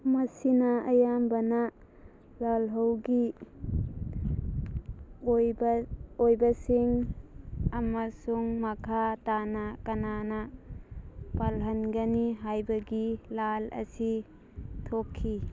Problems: background sounds at intervals